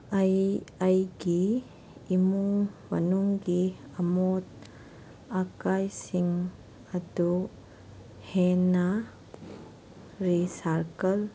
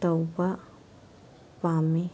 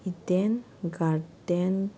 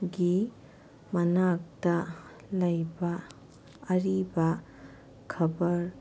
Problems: background sounds at intervals